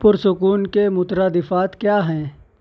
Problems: constant background noise